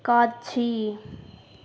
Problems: none marked